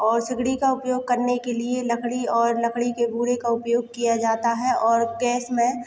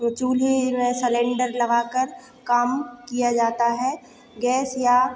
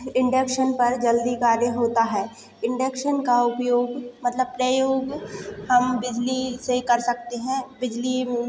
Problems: constant background noise, echo